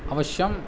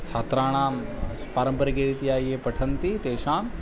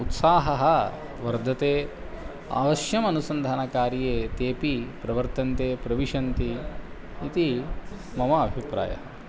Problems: none marked